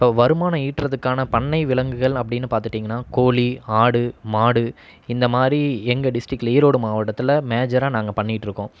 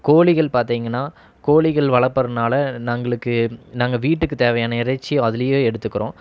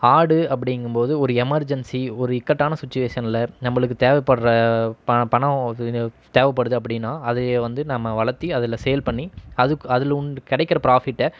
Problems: none marked